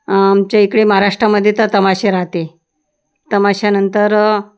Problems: background sounds at intervals